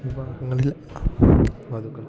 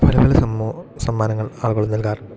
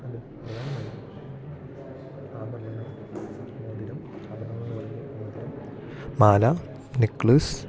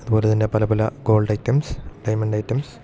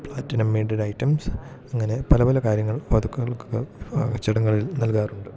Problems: constant background noise